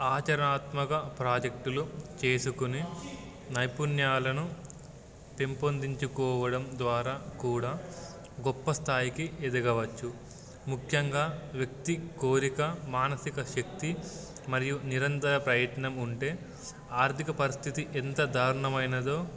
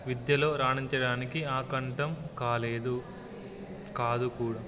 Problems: background sounds at intervals